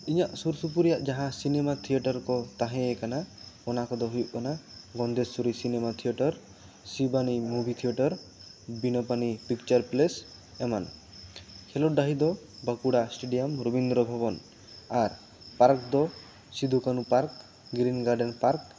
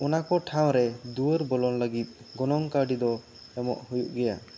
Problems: constant background noise